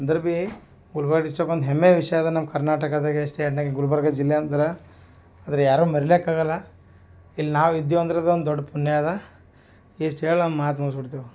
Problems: none marked